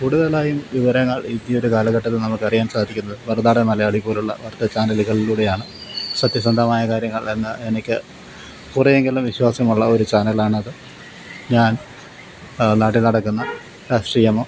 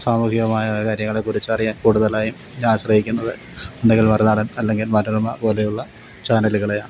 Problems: constant background noise